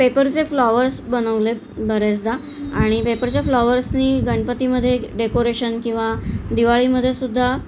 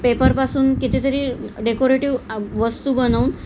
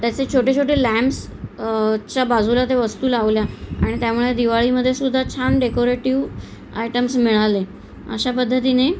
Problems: constant background noise, background conversations at intervals